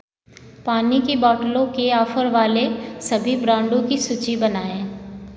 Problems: background sounds at intervals